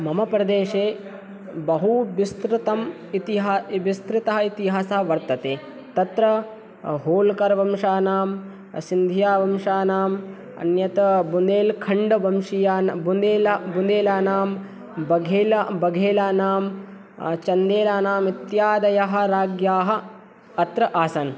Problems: none marked